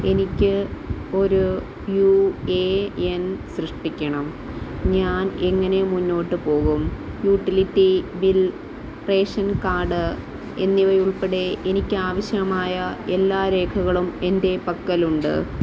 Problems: constant background noise